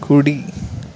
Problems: constant background noise